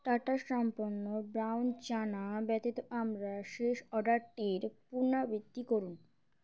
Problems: none marked